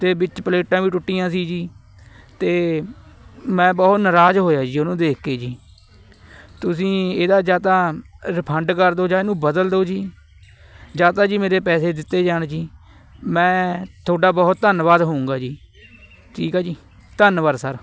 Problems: constant background noise, background conversations at intervals